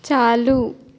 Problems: constant background noise, echo